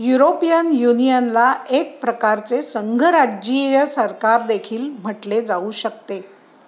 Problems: constant background noise